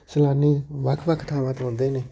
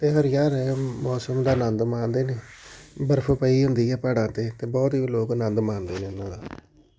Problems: background conversations at intervals